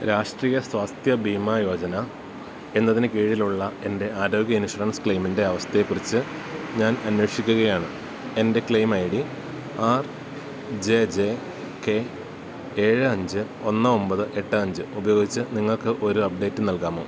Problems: none marked